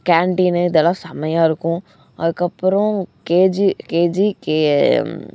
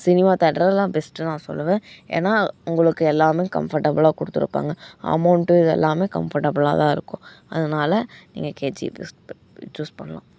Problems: background sounds at intervals